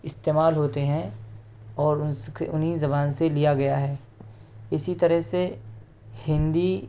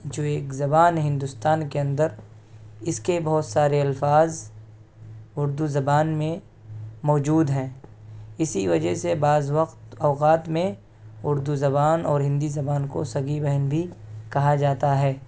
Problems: constant background noise